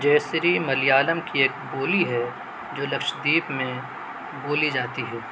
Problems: constant background noise